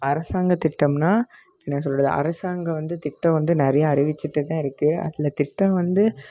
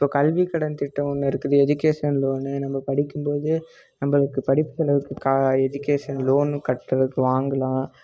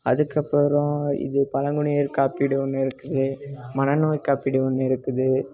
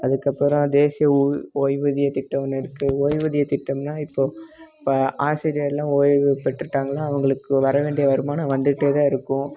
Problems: constant background noise